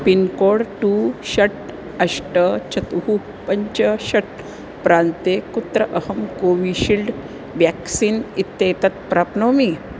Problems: constant background noise